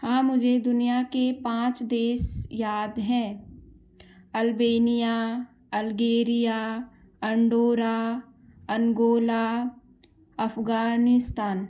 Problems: background sounds at intervals